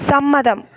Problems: background sounds at intervals